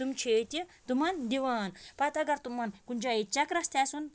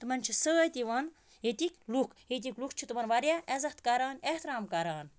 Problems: background sounds at intervals